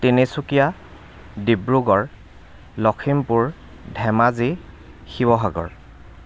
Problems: constant background noise